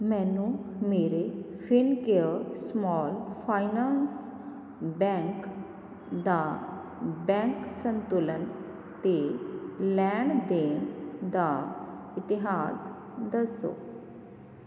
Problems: none marked